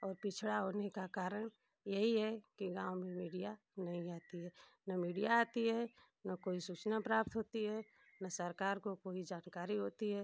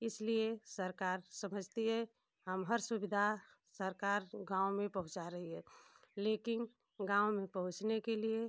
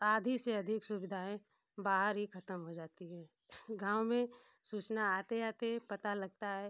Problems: constant background noise